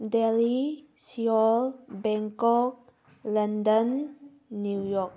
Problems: background sounds at intervals